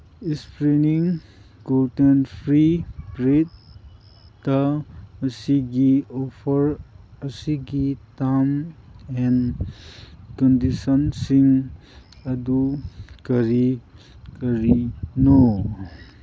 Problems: background sounds at intervals